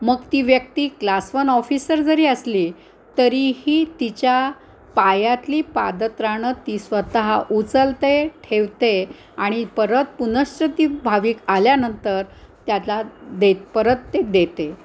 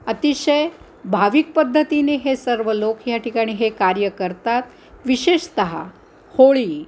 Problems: constant background noise